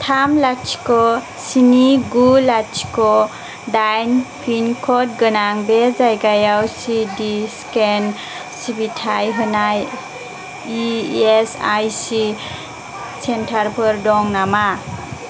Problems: constant background noise